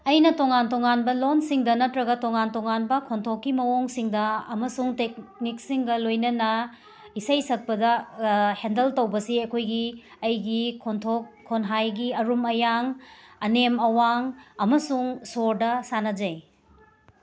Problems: constant background noise